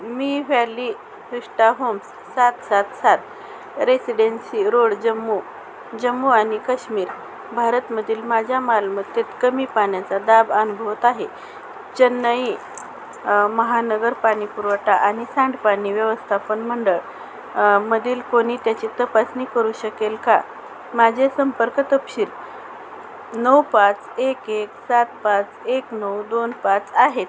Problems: constant background noise